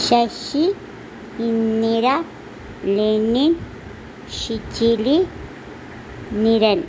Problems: constant background noise